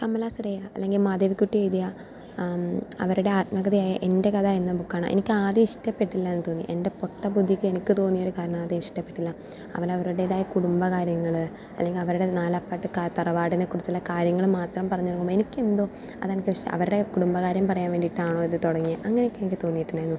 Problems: none marked